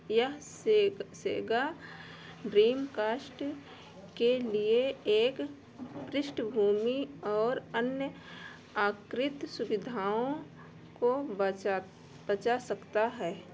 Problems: background sounds at intervals